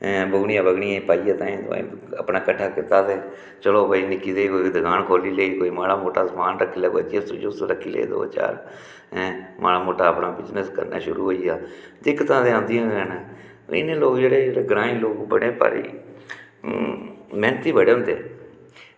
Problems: background sounds at intervals, echo